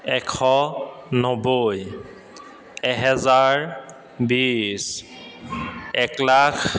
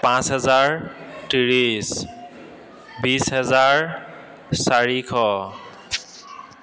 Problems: constant background noise, echo